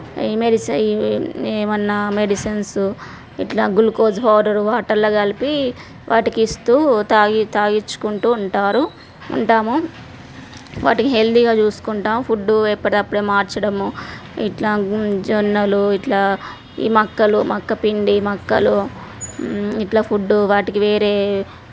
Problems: background sounds at intervals